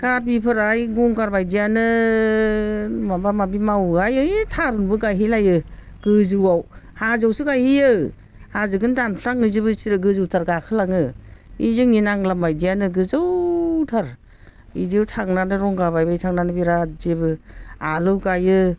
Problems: none marked